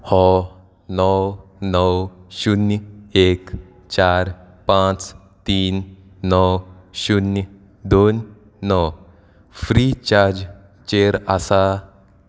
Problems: none marked